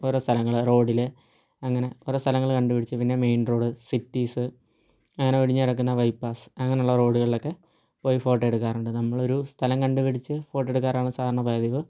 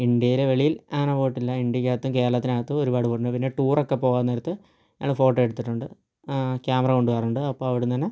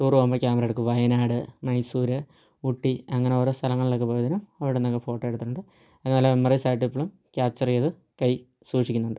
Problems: low volume